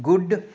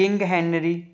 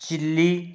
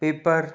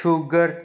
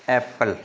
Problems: background sounds at intervals